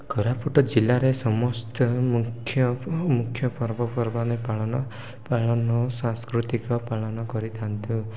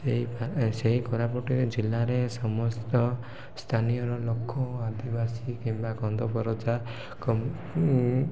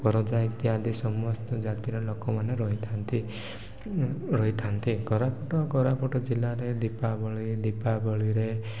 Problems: none marked